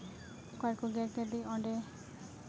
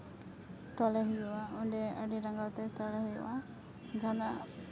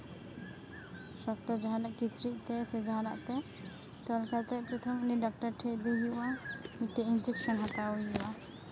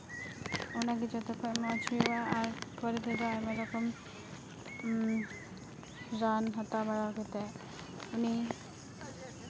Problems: constant background noise, background conversations at intervals